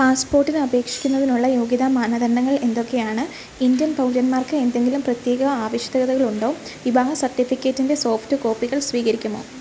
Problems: constant background noise